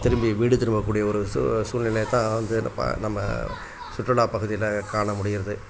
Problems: constant background noise, background conversations at intervals